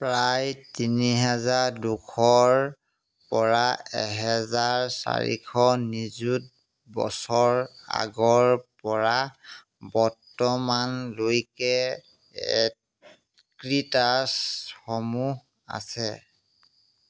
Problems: background sounds at intervals